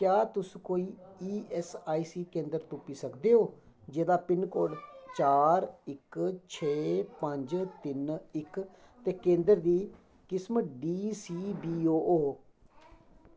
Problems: none marked